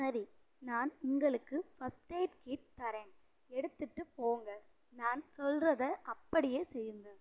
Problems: low volume